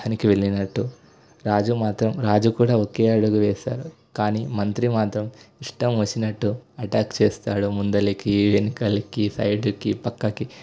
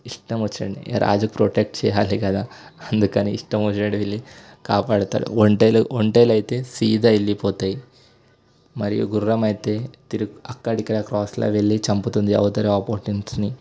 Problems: constant background noise